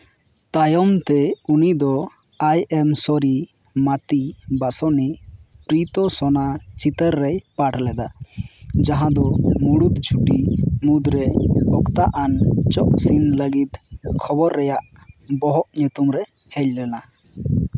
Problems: none marked